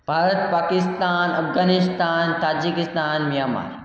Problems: echo